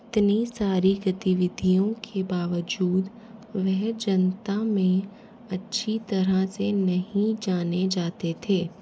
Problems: none marked